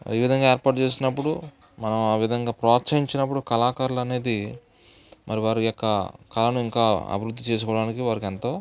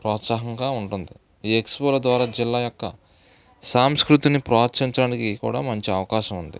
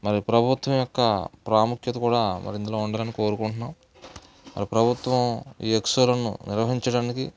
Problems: background sounds at intervals, background conversations at intervals